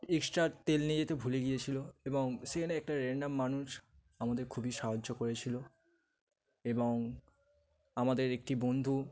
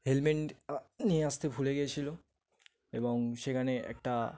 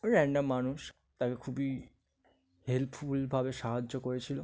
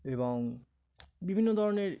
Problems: none marked